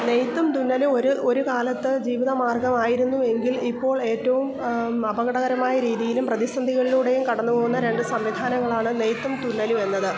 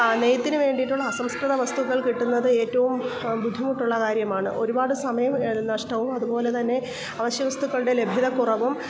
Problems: background sounds at intervals